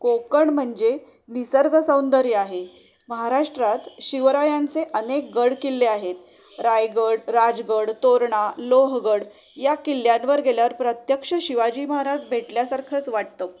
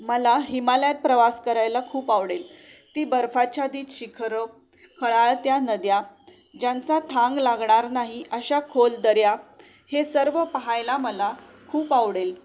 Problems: none marked